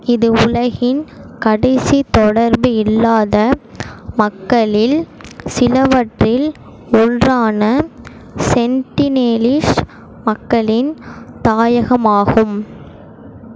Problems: constant background noise